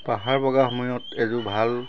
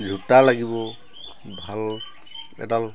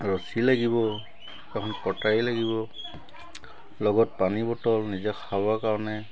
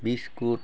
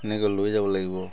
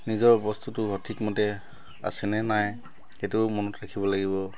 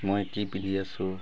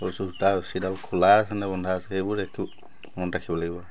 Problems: constant background noise, background conversations at intervals